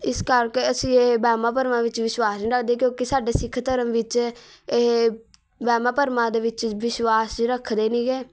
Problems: background sounds at intervals, background conversations at intervals